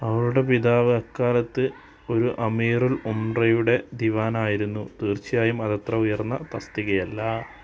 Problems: none marked